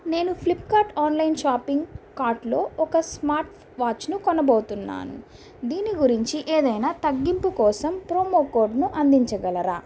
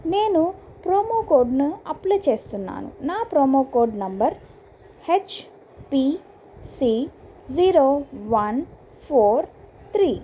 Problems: constant background noise